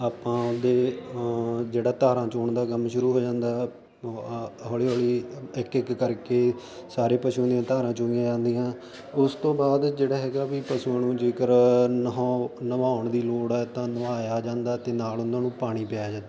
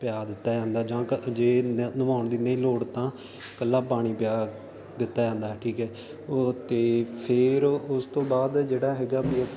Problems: constant background noise